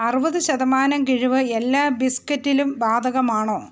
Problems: constant background noise